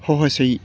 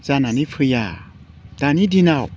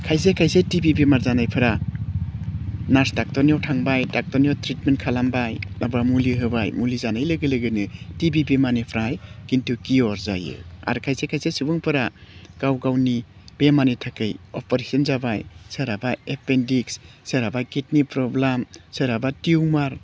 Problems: none marked